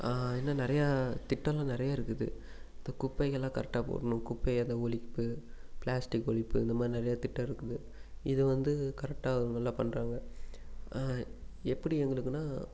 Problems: none marked